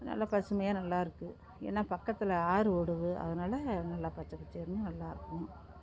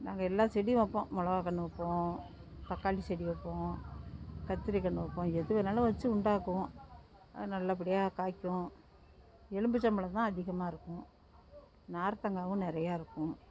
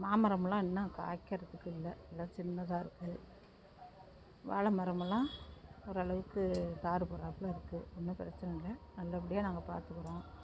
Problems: none marked